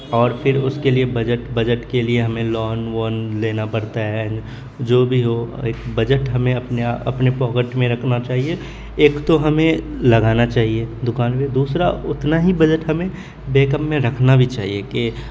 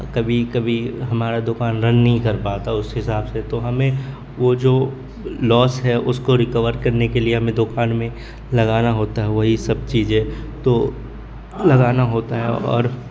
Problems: constant background noise, continuous background conversations